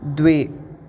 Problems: constant background noise